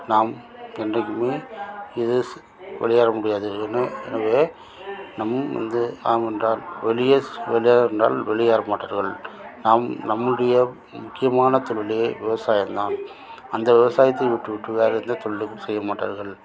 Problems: constant background noise